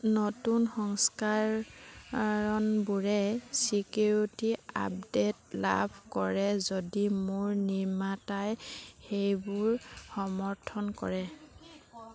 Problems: none marked